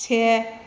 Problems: none marked